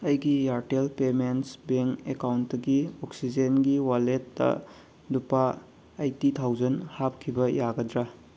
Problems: constant background noise